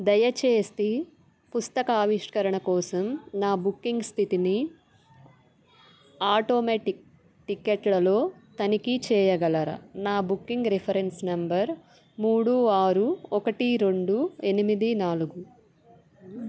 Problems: background sounds at intervals